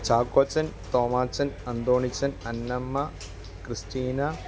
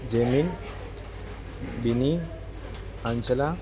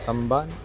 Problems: constant background noise, low volume